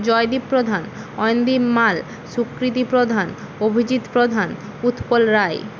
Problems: constant background noise